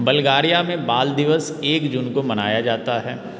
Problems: constant background noise